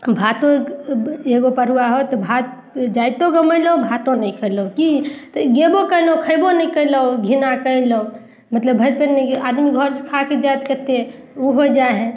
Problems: none marked